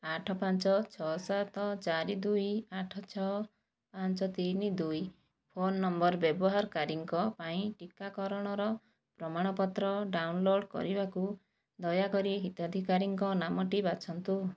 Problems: low volume